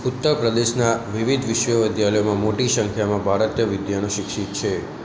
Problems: constant background noise